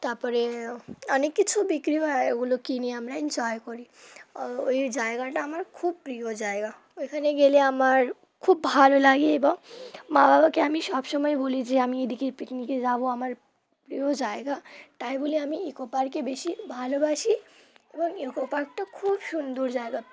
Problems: none marked